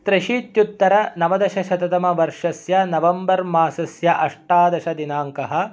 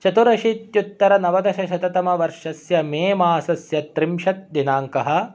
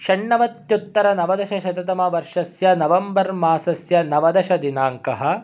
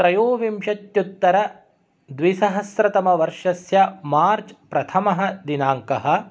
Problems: none marked